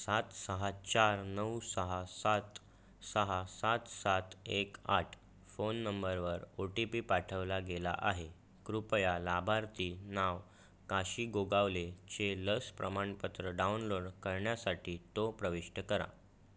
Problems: constant background noise